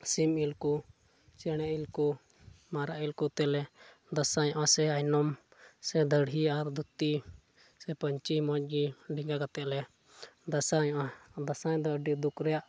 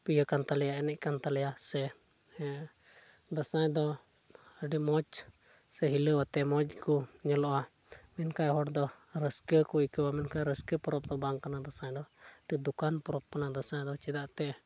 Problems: none marked